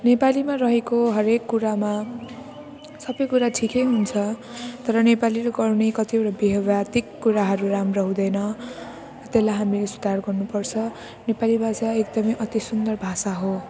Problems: none marked